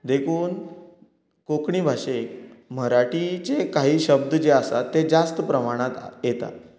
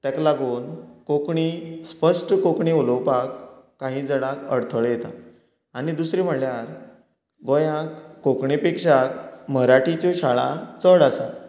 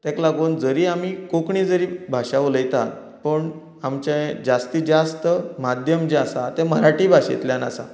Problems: continuous background conversations